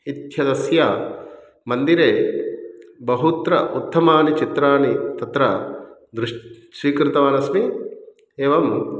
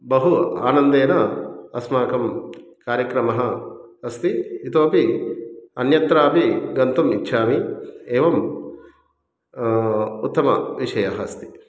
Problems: background sounds at intervals